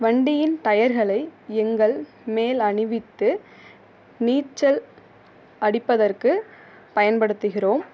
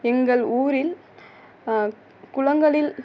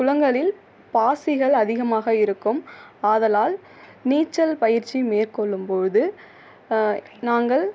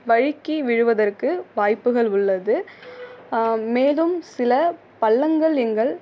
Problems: background sounds at intervals